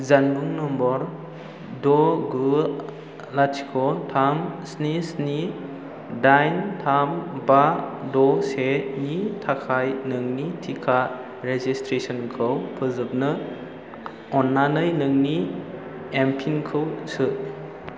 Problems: constant background noise